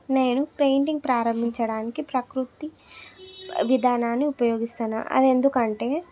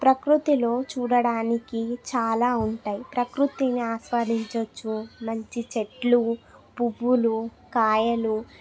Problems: continuous background conversations